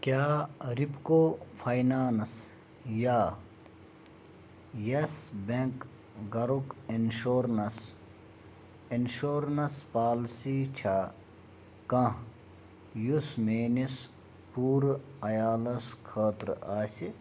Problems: none marked